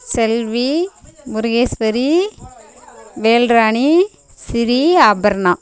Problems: constant background noise